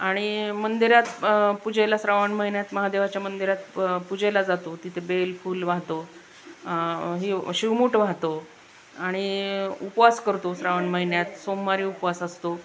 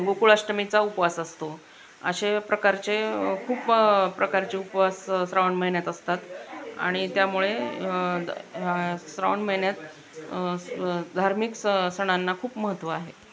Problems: constant background noise